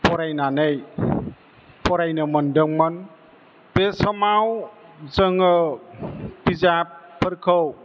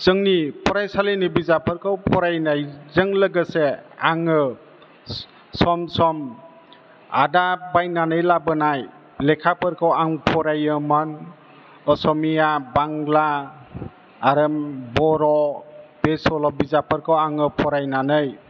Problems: constant background noise